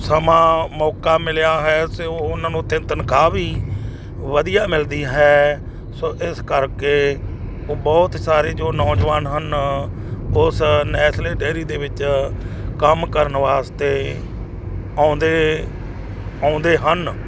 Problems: constant background noise